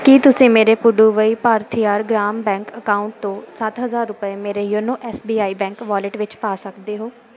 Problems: background sounds at intervals